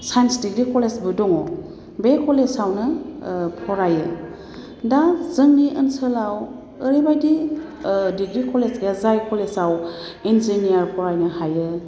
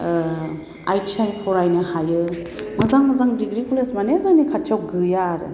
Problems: constant background noise